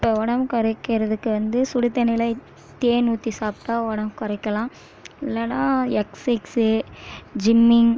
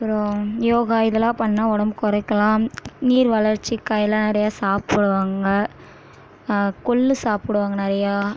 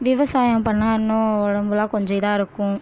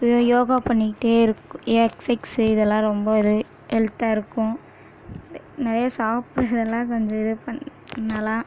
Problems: none marked